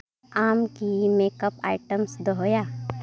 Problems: background conversations at intervals